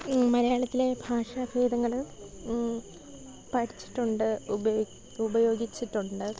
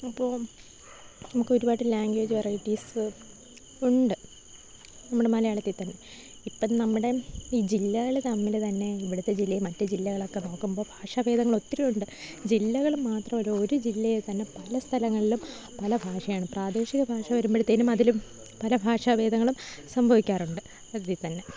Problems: none marked